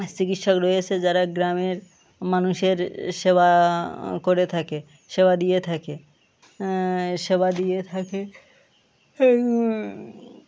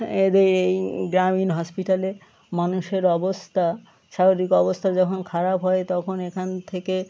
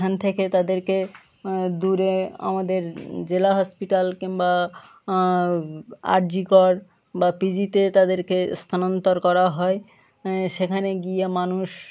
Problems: constant background noise, continuous background conversations